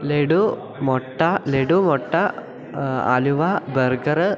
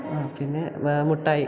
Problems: continuous background conversations